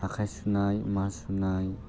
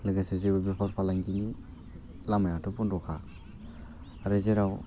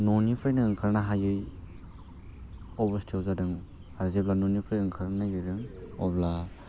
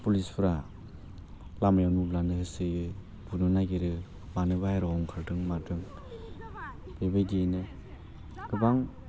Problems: constant background noise